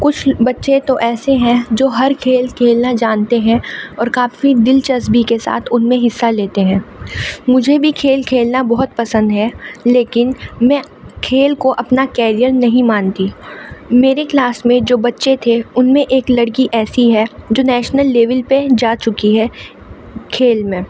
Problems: constant background noise